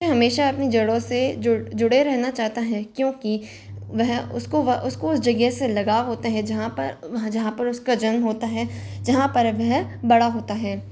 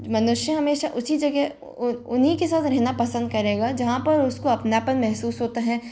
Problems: constant background noise